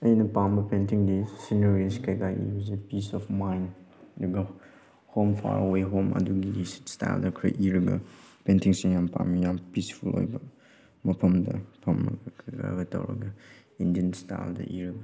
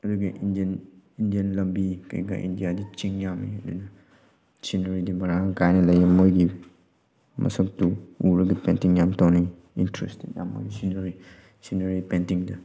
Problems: background sounds at intervals